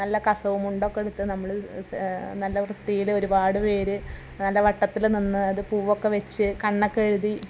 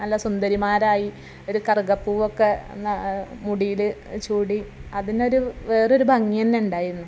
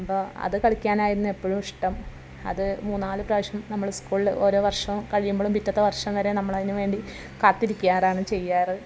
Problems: none marked